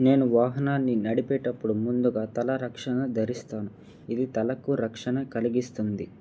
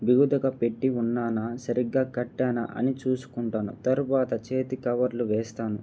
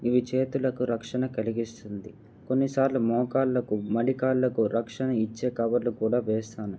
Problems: none marked